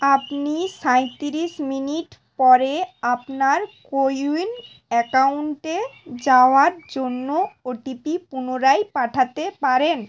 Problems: constant background noise